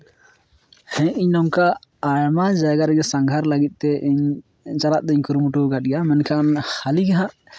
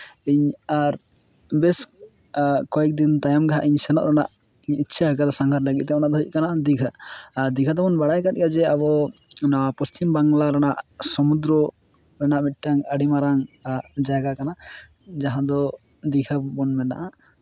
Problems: background sounds at intervals